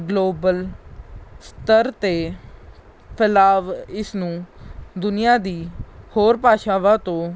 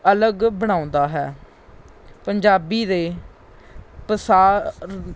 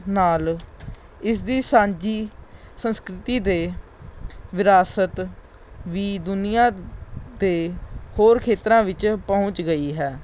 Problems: background sounds at intervals